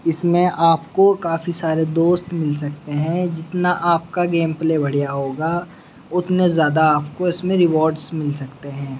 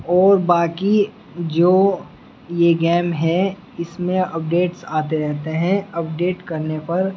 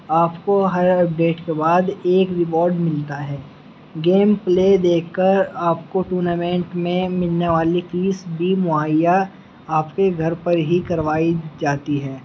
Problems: background sounds at intervals